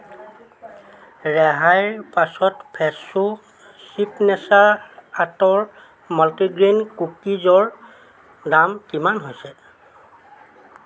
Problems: constant background noise, continuous background conversations